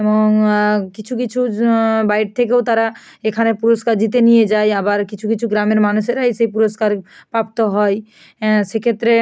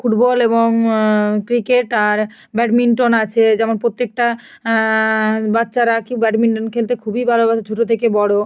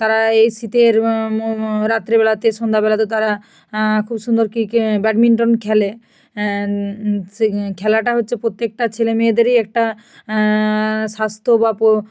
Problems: none marked